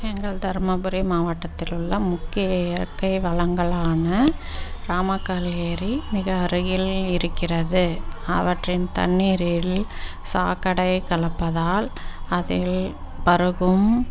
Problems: constant background noise